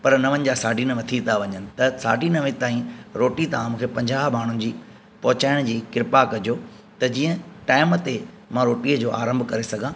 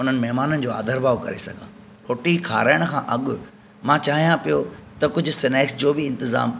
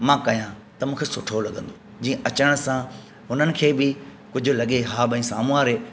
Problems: constant background noise